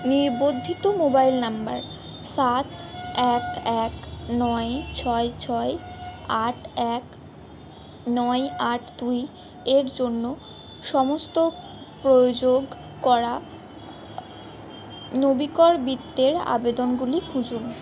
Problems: background sounds at intervals